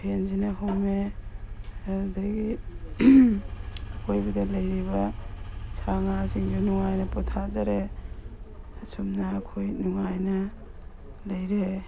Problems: background sounds at intervals